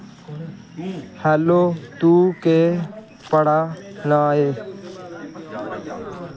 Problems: constant background noise